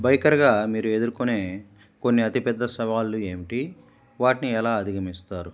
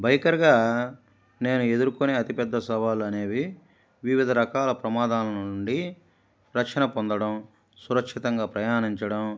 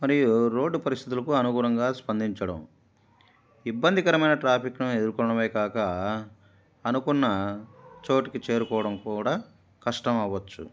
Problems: none marked